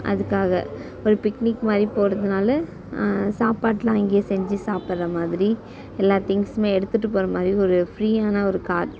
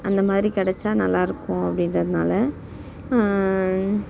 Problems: background conversations at intervals